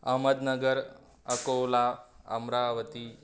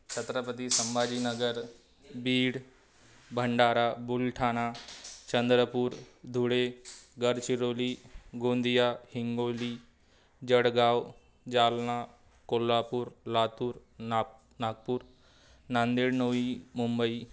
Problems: none marked